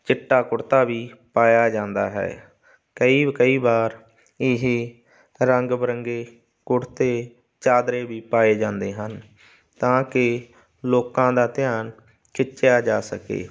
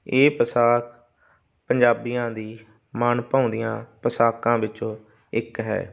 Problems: constant background noise